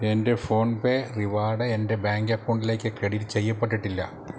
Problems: constant background noise, low volume